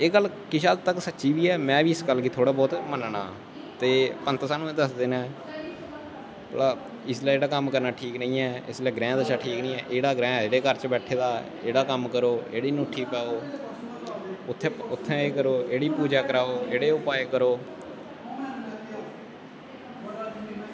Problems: constant background noise